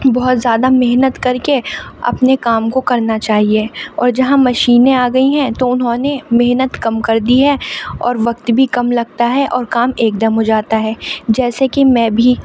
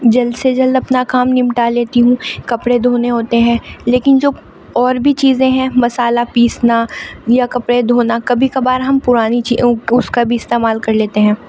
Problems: constant background noise, background conversations at intervals